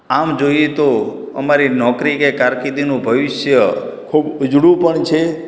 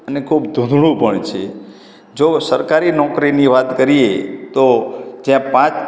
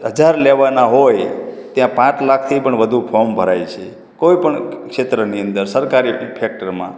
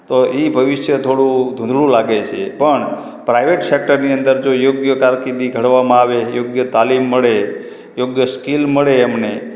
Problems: background sounds at intervals